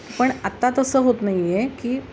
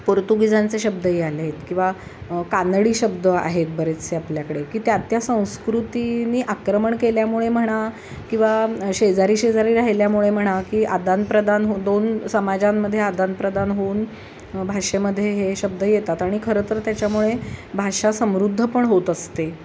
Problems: constant background noise